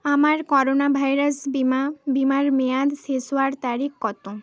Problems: constant background noise, background conversations at intervals